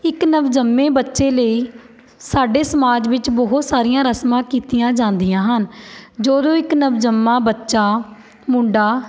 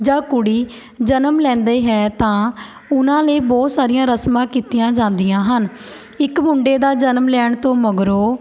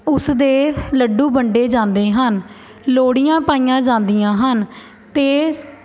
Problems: none marked